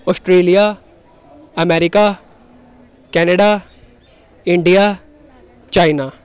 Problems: background conversations at intervals